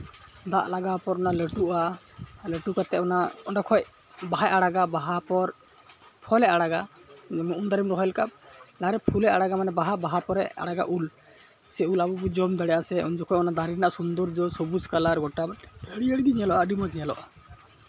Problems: constant background noise, background conversations at intervals